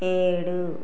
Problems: constant background noise